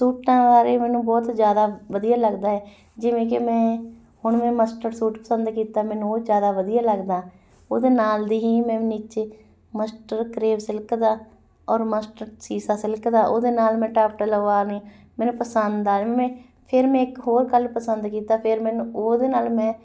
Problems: background sounds at intervals, background conversations at intervals